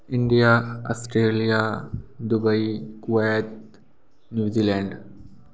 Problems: background sounds at intervals, background conversations at intervals